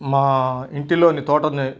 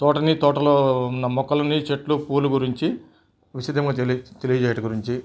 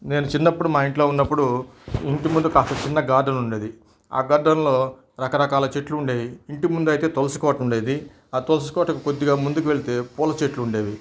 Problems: background sounds at intervals